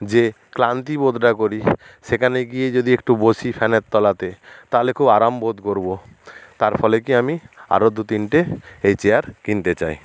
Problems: constant background noise